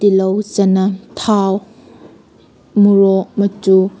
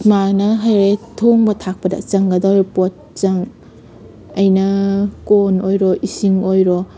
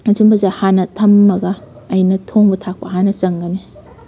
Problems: background sounds at intervals